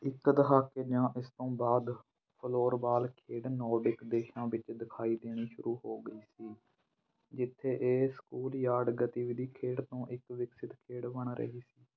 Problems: background conversations at intervals